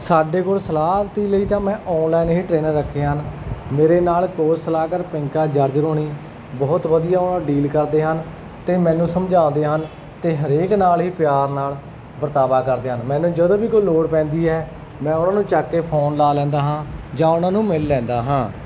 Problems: background sounds at intervals